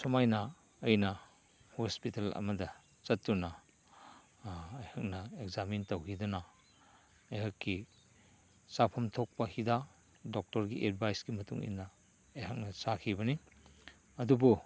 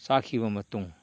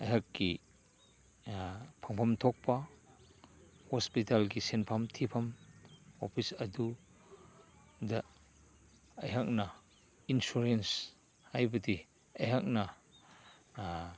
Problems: constant background noise